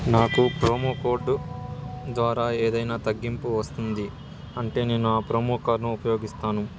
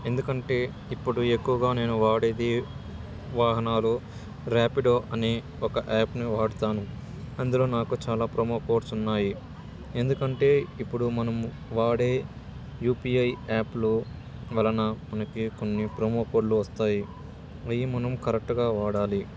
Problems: constant background noise, continuous background conversations